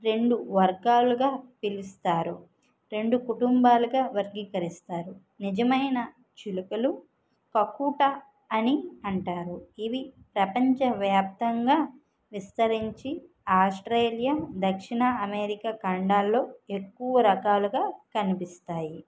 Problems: none marked